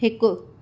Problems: none marked